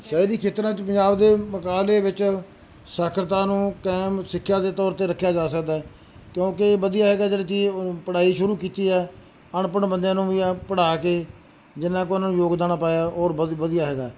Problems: background sounds at intervals